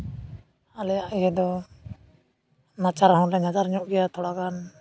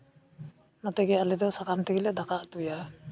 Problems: constant background noise